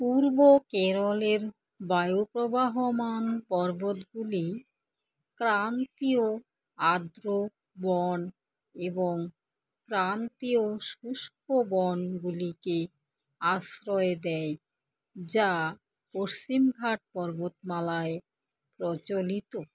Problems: constant background noise